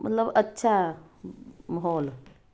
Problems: none marked